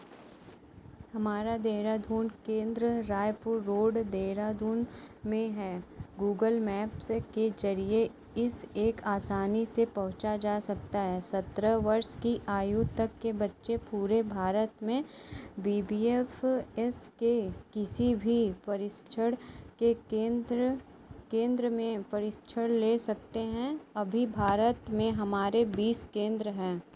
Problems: constant background noise